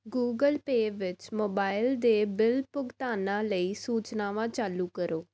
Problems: none marked